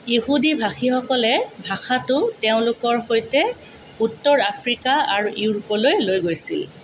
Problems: constant background noise